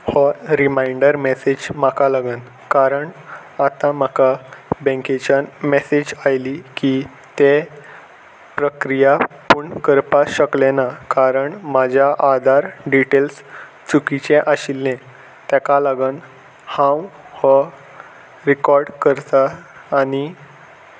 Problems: none marked